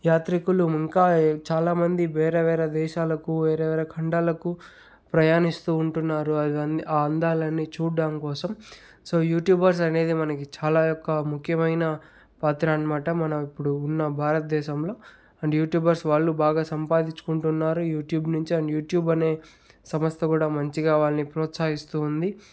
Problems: background sounds at intervals